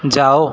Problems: constant background noise